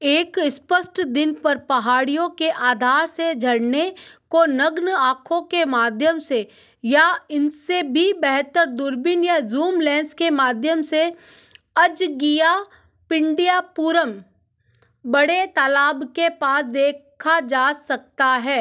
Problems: none marked